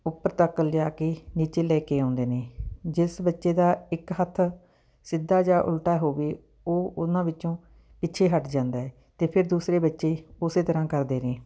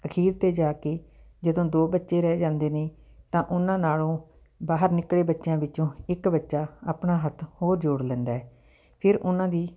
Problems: background sounds at intervals